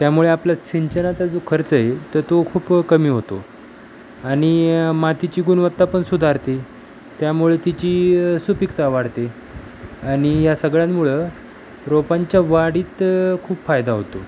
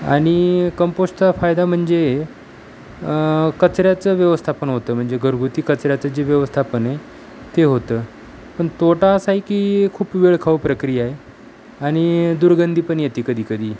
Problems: constant background noise